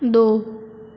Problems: low volume